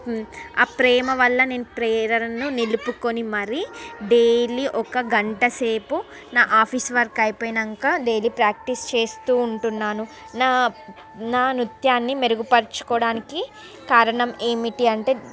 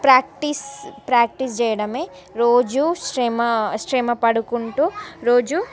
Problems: constant background noise